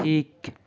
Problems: background sounds at intervals